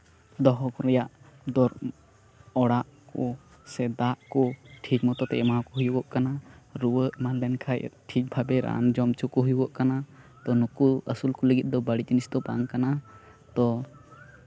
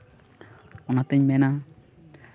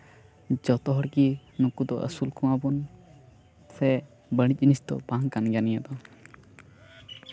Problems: constant background noise